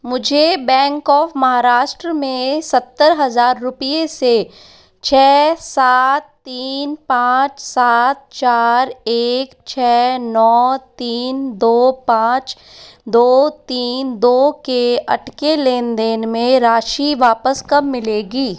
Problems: echo